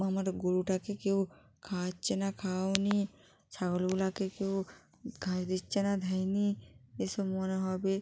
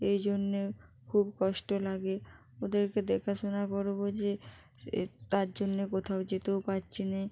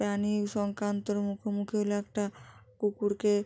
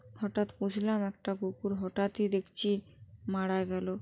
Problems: none marked